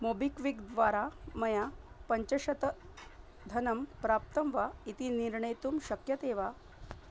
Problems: low volume